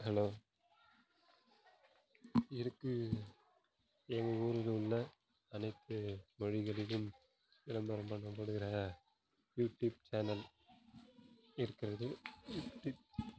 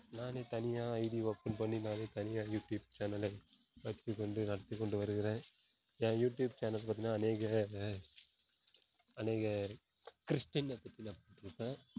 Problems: background sounds at intervals, low volume